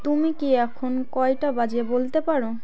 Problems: continuous background conversations